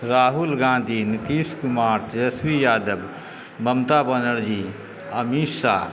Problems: constant background noise